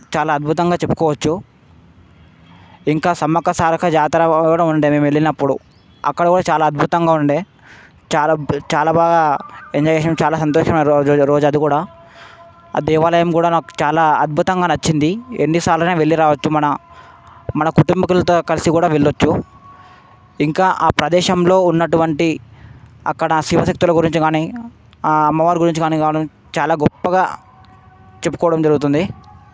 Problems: background sounds at intervals